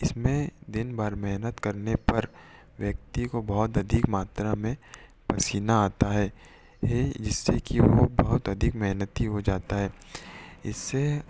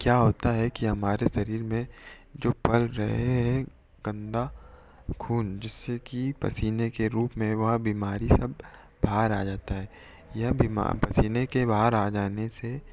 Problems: echo